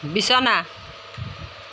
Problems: constant background noise